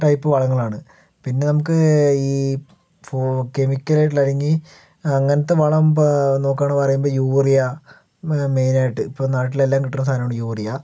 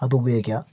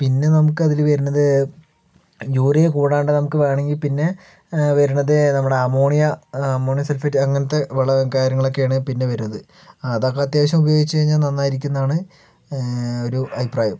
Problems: background conversations at intervals